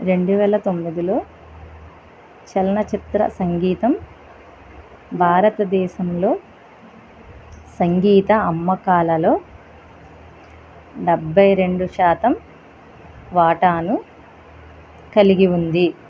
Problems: none marked